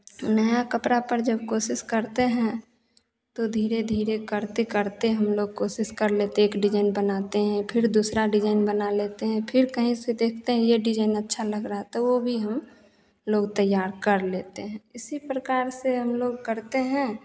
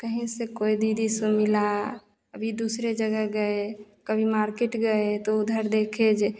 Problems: constant background noise, echo